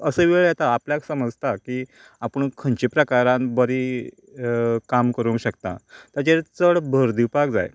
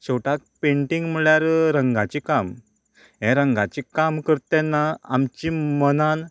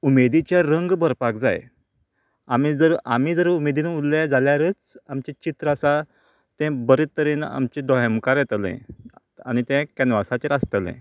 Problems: continuous background conversations